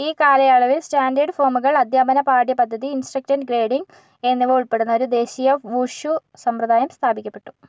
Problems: none marked